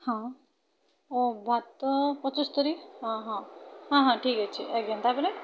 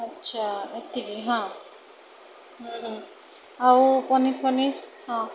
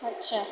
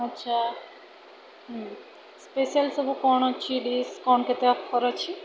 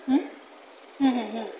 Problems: constant background noise, continuous background conversations